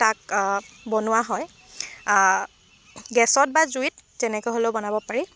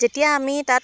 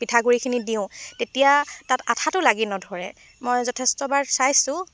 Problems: constant background noise